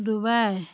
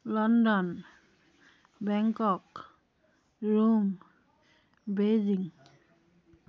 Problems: none marked